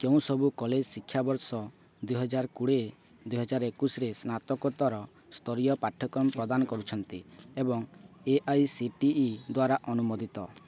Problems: none marked